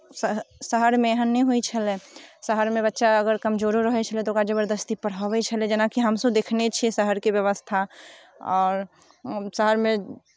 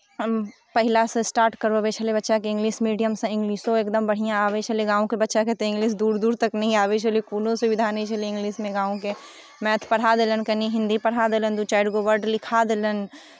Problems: none marked